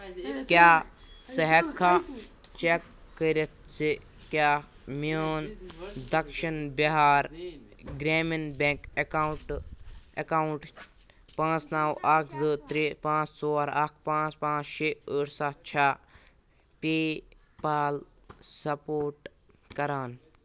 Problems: background sounds at intervals, background conversations at intervals